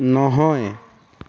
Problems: constant background noise